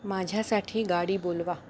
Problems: none marked